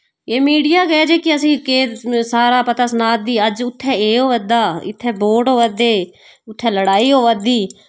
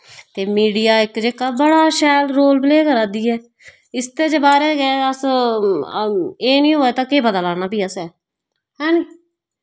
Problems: background sounds at intervals, background conversations at intervals